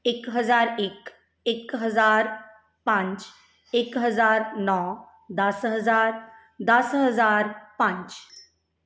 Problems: background sounds at intervals